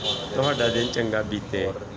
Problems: continuous background conversations